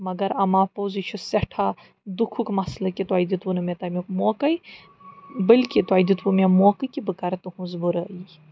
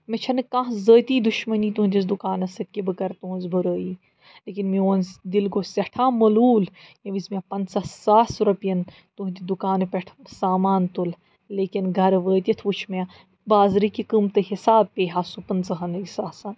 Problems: background sounds at intervals